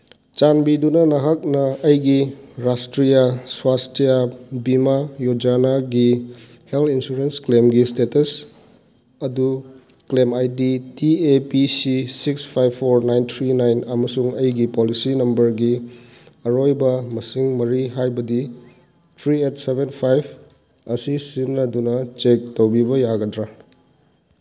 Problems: none marked